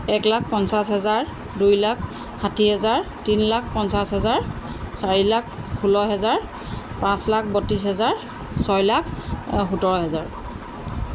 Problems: constant background noise